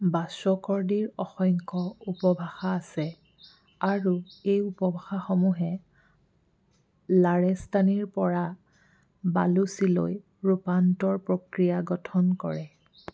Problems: background sounds at intervals